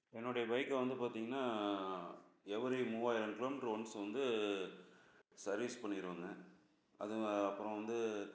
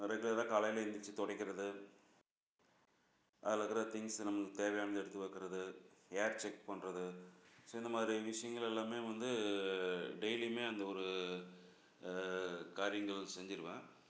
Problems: none marked